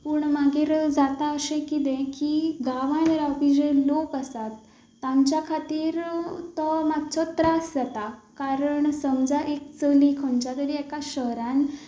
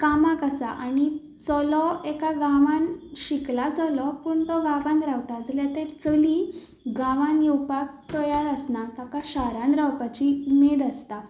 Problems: background sounds at intervals